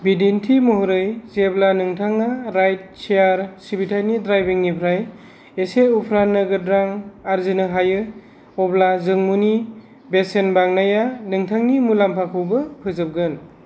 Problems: none marked